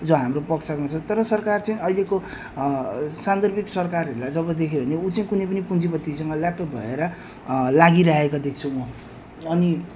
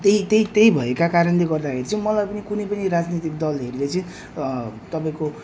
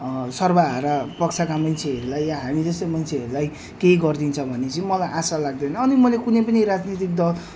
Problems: none marked